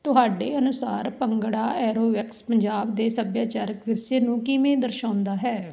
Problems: none marked